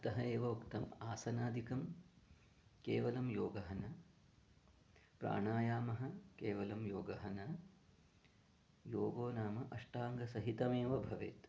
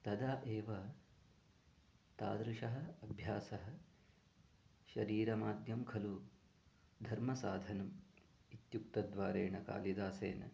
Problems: low volume